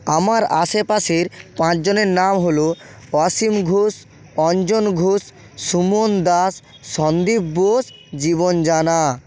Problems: none marked